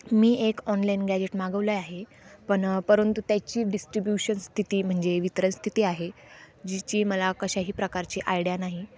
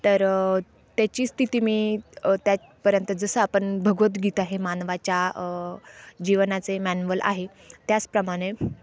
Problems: constant background noise